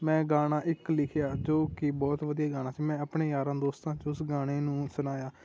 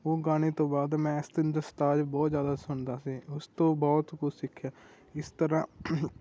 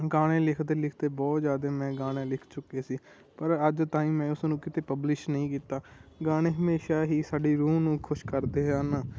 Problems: none marked